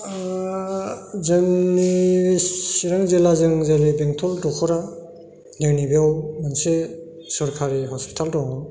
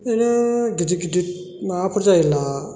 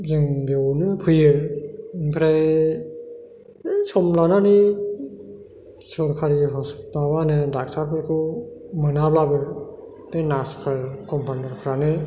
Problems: none marked